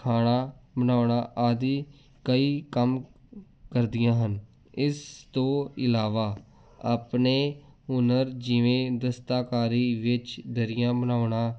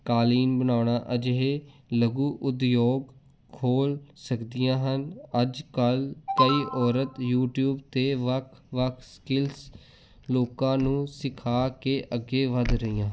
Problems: background sounds at intervals